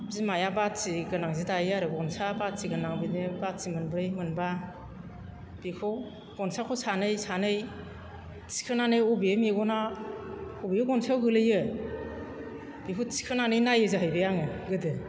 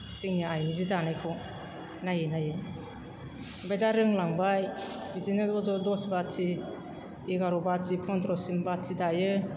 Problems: background sounds at intervals